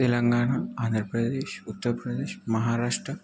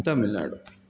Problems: none marked